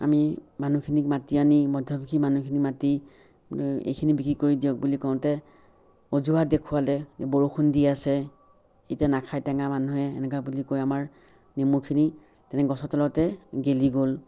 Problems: background sounds at intervals